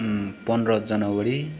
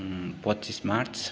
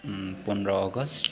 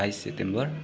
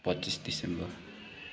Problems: constant background noise